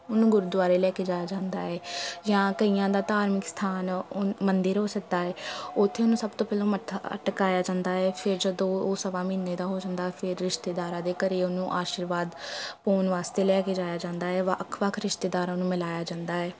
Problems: constant background noise, continuous background conversations